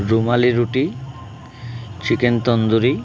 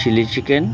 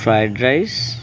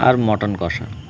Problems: constant background noise, continuous background conversations